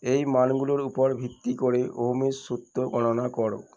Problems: background sounds at intervals